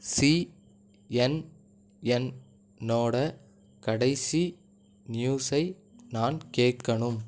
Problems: none marked